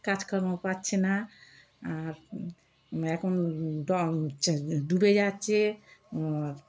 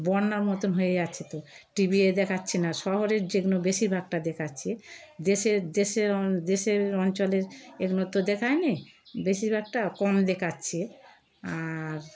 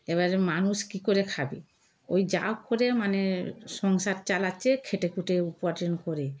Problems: background sounds at intervals